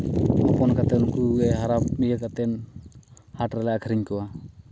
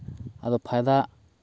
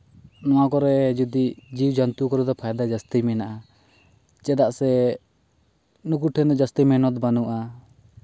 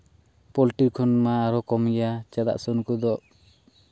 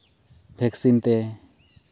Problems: background sounds at intervals